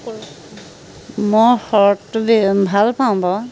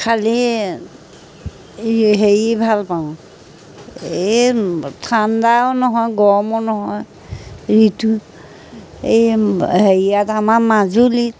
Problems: none marked